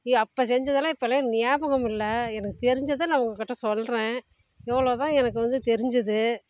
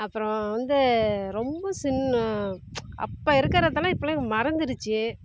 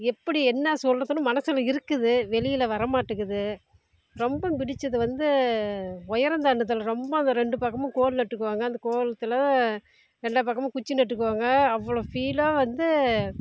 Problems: constant background noise, low volume